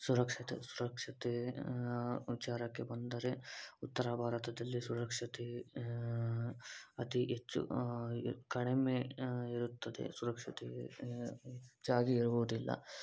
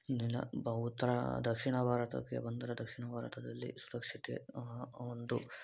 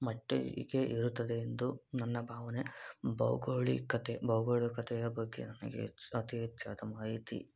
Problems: low volume